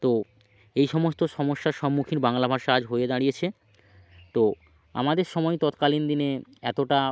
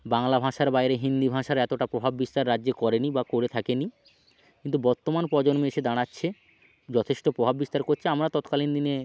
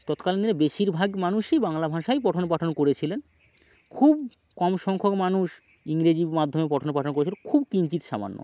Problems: none marked